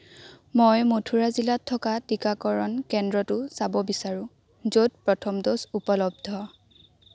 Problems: constant background noise